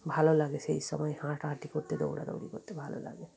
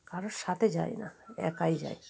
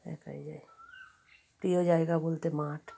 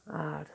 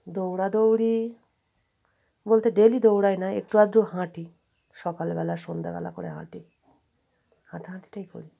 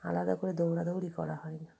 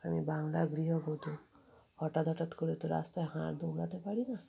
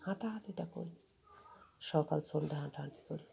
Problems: background sounds at intervals, continuous background conversations